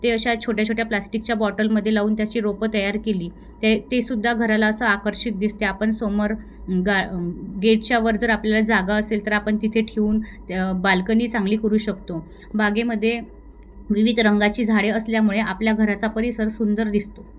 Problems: none marked